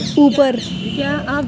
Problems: constant background noise, background conversations at intervals